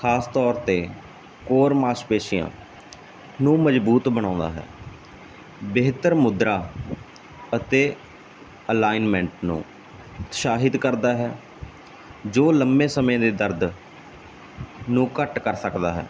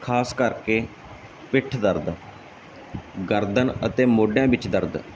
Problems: none marked